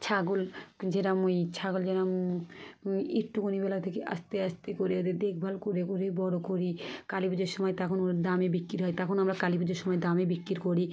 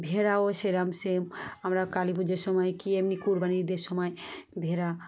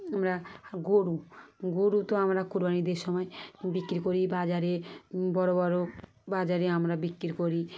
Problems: background sounds at intervals